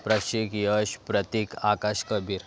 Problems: constant background noise